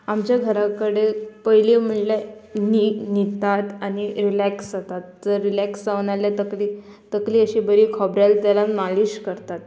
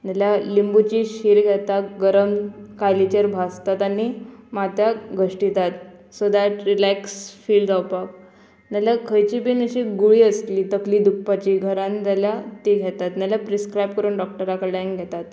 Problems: none marked